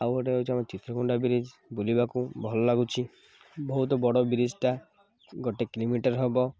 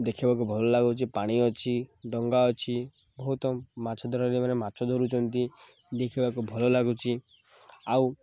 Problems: background sounds at intervals